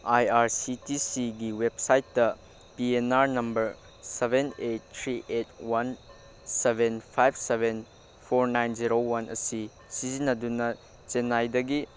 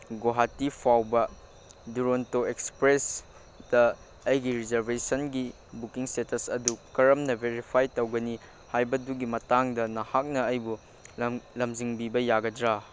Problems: constant background noise